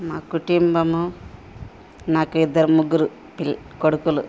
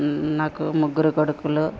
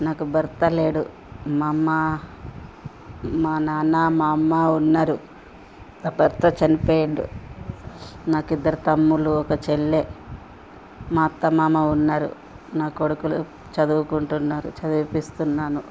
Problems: constant background noise, background conversations at intervals